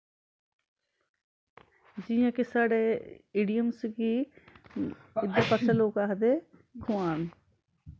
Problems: constant background noise